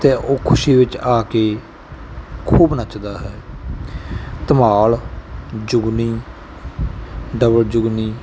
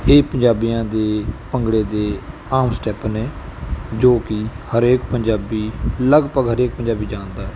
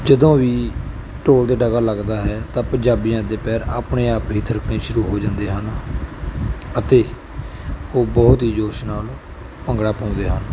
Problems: none marked